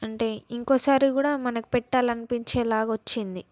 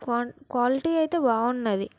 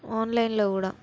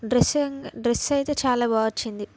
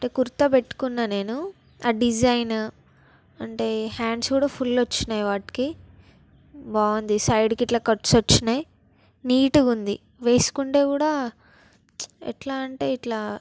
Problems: background sounds at intervals